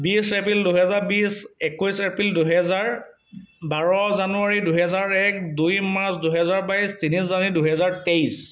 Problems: constant background noise